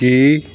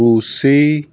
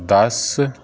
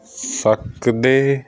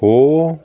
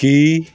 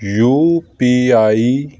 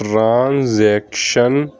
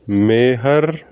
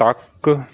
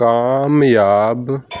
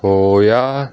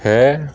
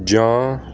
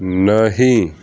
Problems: constant background noise